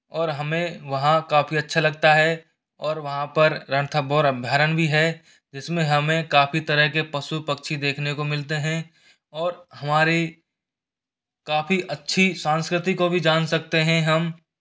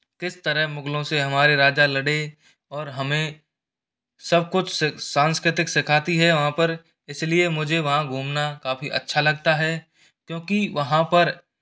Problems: background sounds at intervals